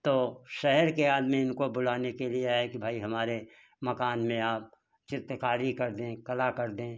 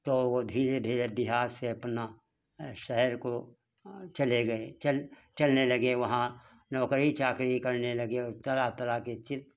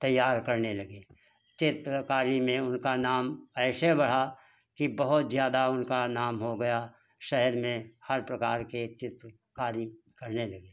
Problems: constant background noise